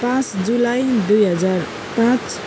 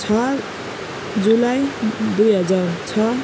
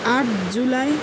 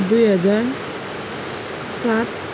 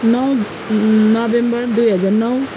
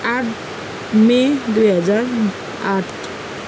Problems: none marked